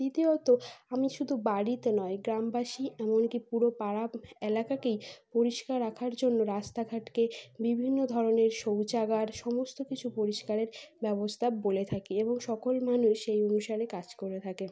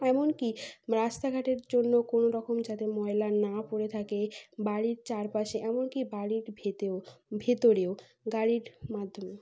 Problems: background sounds at intervals